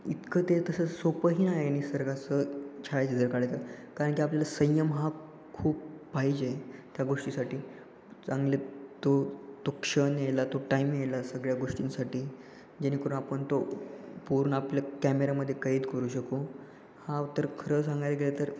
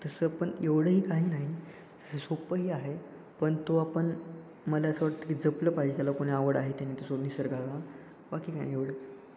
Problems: constant background noise, echo